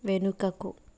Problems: constant background noise